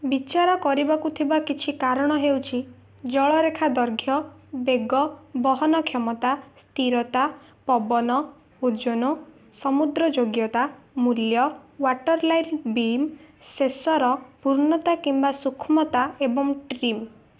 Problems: none marked